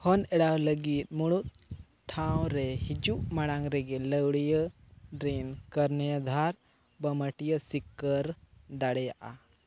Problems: none marked